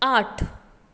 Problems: constant background noise